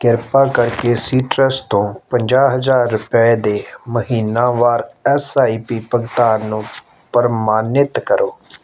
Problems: background sounds at intervals